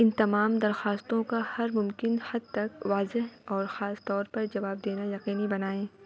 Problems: constant background noise, background conversations at intervals